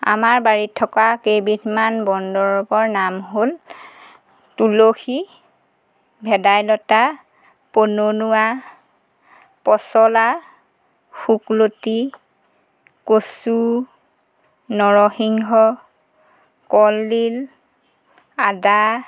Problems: background sounds at intervals